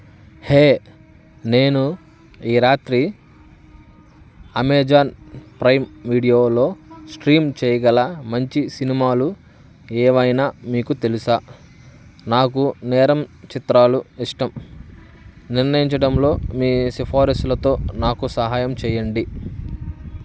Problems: constant background noise